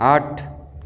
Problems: echo